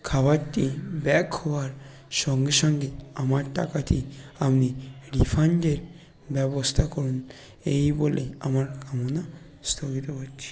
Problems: constant background noise, background conversations at intervals